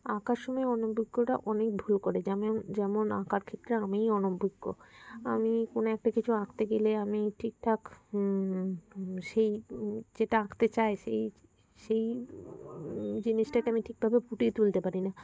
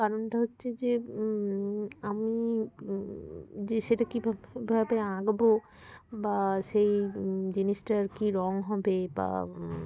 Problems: constant background noise, continuous background conversations